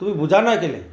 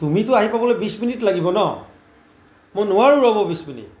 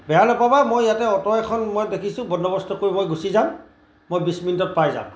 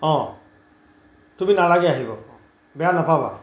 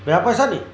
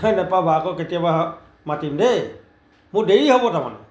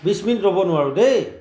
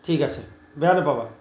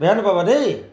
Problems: background sounds at intervals